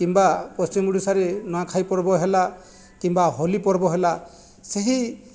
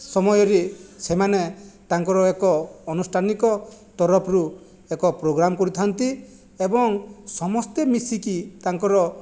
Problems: background sounds at intervals